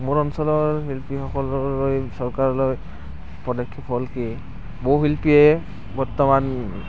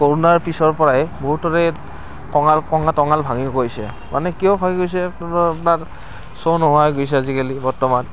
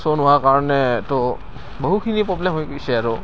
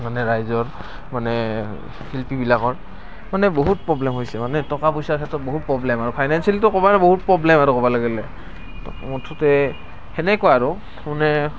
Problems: none marked